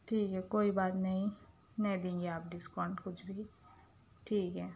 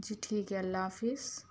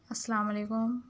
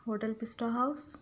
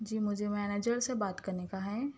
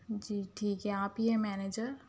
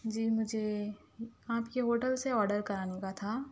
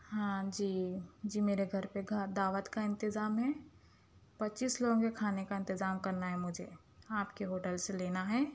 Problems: none marked